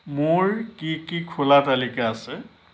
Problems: none marked